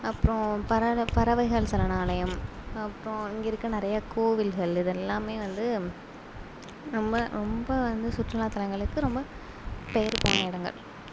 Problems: constant background noise